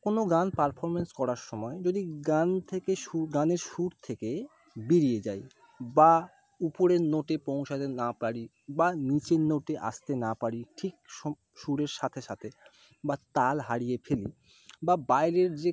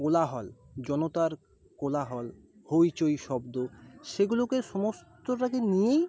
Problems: background sounds at intervals, background conversations at intervals